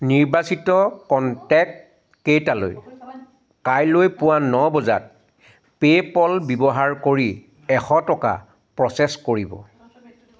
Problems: none marked